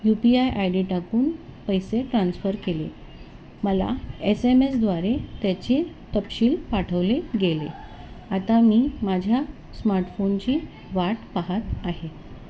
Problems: constant background noise